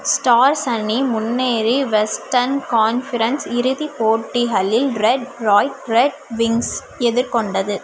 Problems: constant background noise